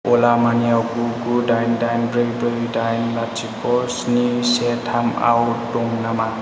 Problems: none marked